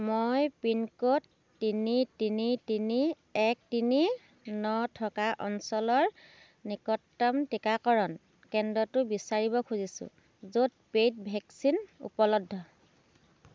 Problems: none marked